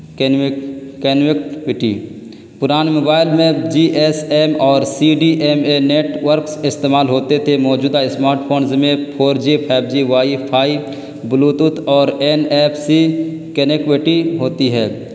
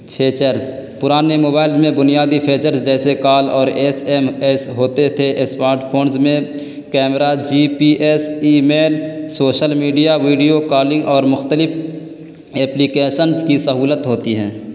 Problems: constant background noise